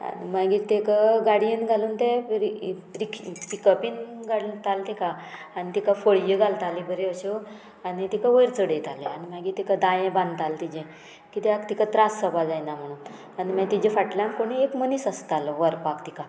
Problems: background sounds at intervals